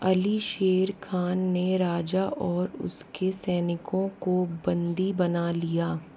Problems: none marked